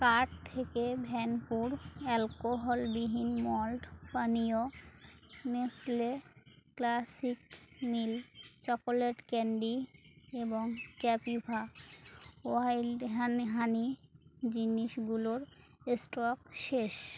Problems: constant background noise